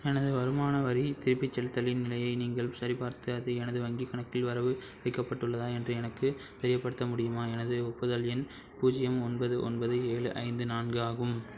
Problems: background sounds at intervals